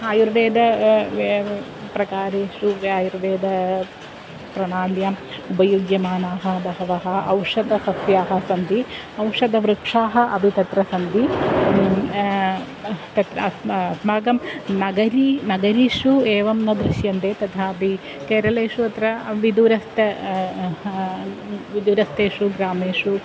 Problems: none marked